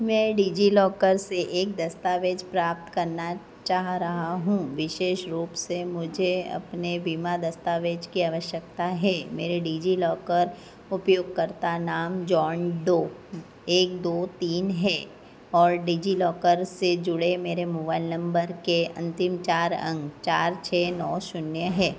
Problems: constant background noise